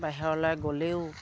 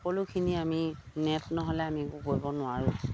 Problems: none marked